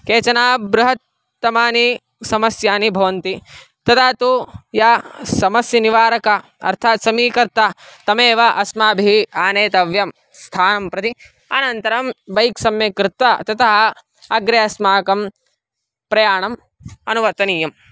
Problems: none marked